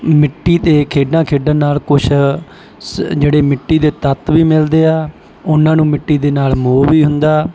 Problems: background sounds at intervals